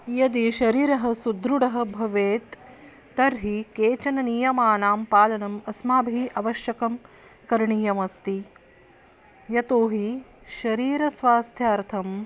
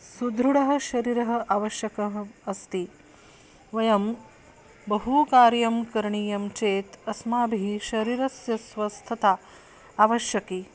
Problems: constant background noise